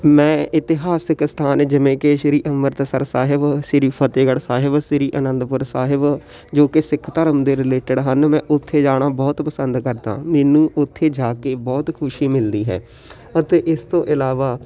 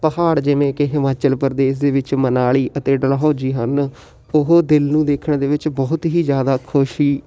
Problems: constant background noise, continuous background conversations